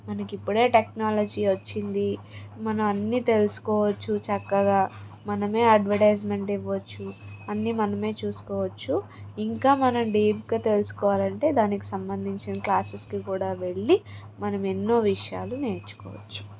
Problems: constant background noise, background conversations at intervals